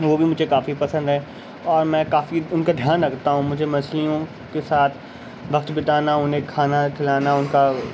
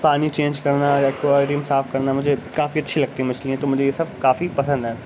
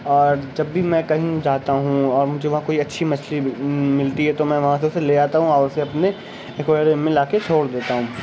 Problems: constant background noise, background conversations at intervals